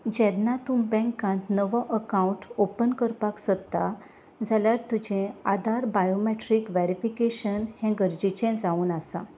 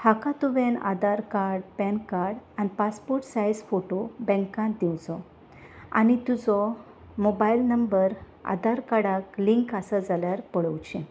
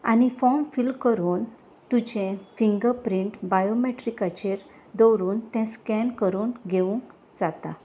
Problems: none marked